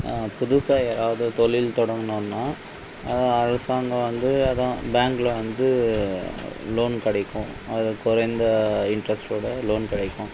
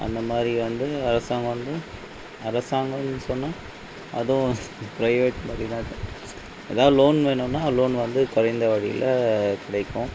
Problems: background sounds at intervals